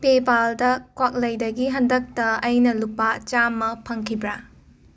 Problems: constant background noise